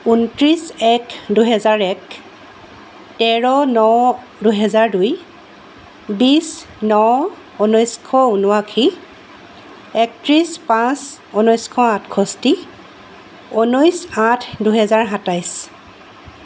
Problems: constant background noise